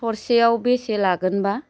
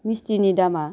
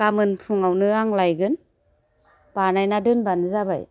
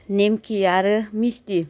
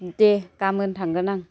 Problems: constant background noise